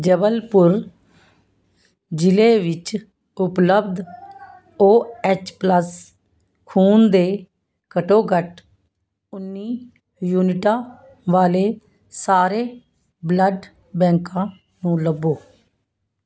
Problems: none marked